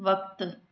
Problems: echo